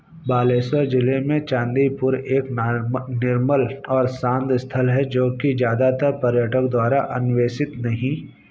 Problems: none marked